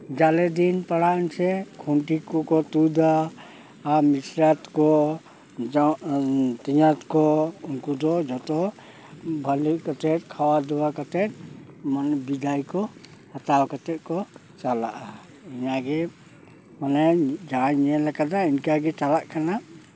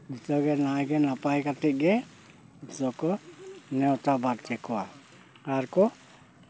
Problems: constant background noise, background conversations at intervals